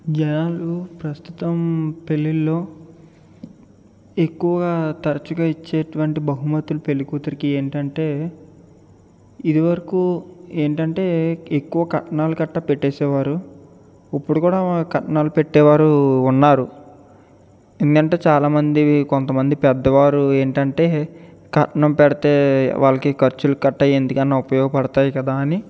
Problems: none marked